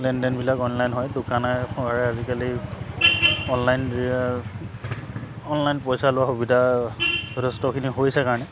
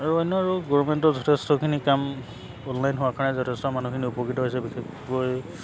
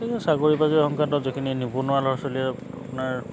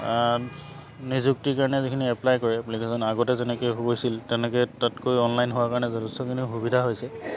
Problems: background sounds at intervals